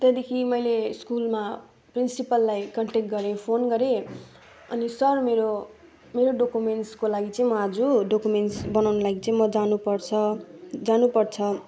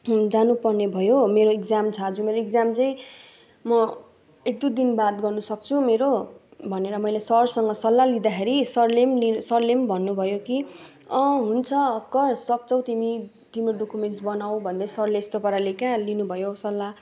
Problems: none marked